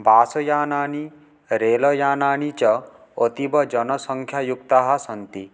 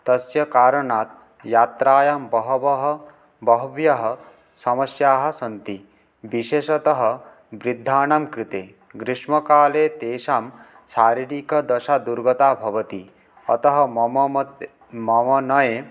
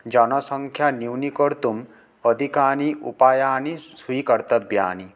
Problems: none marked